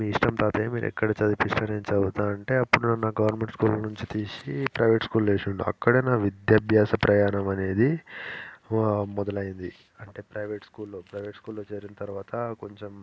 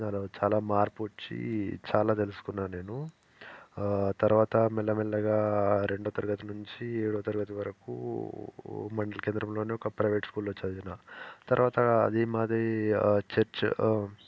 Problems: none marked